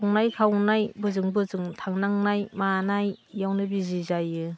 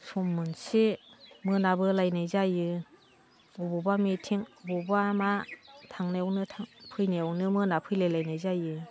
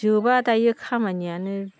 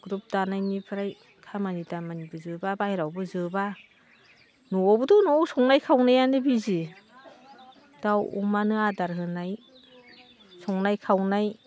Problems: background conversations at intervals